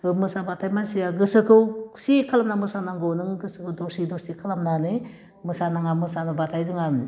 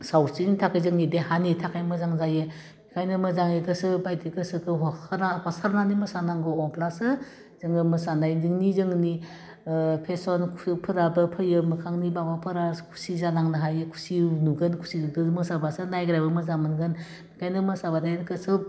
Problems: constant background noise